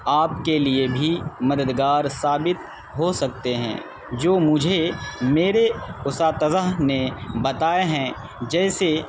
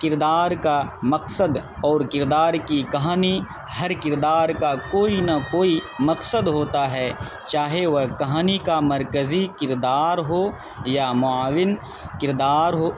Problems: constant background noise